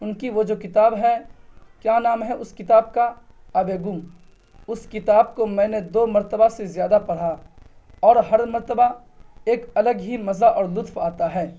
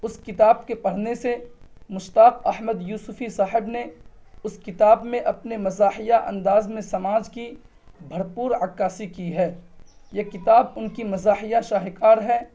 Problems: none marked